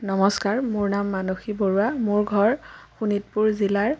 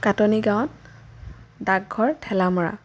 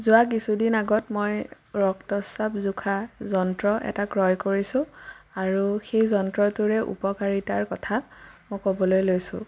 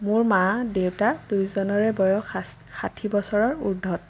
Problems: none marked